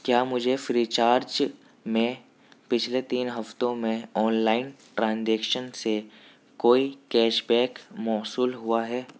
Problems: none marked